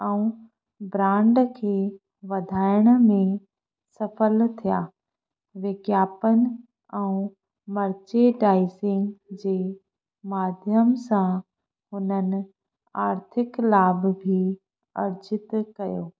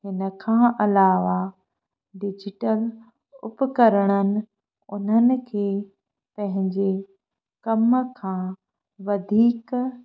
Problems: none marked